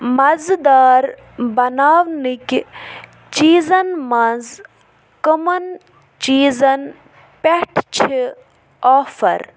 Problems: background sounds at intervals